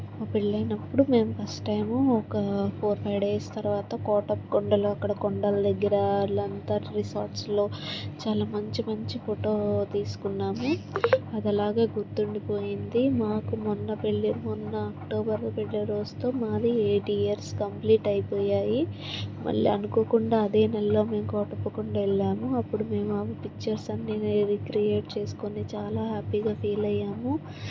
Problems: constant background noise